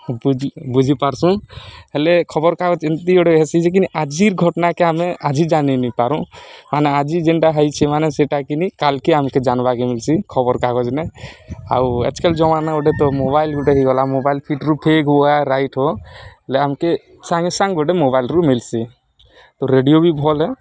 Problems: none marked